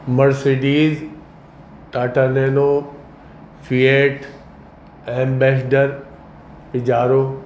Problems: constant background noise